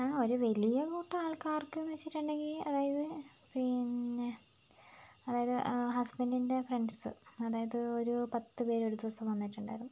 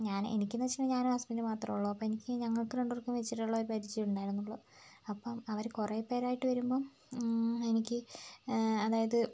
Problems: low volume